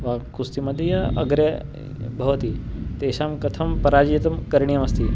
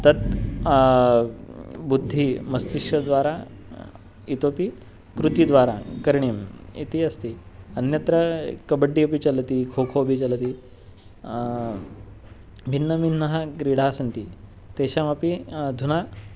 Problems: background sounds at intervals